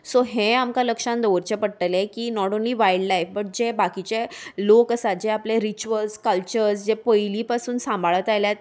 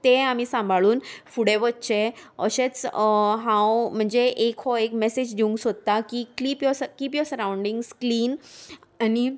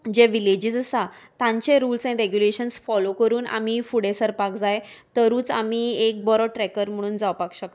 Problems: none marked